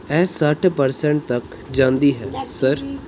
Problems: background conversations at intervals